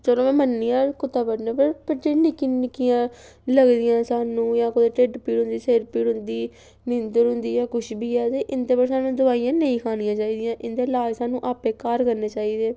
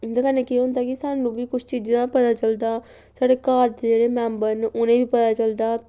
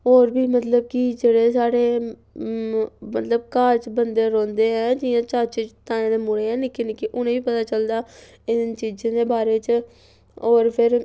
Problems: background sounds at intervals